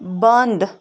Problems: background sounds at intervals